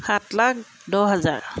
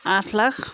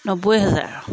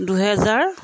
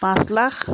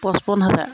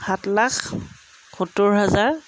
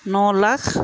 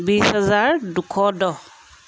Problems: background sounds at intervals